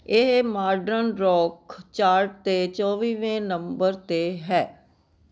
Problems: none marked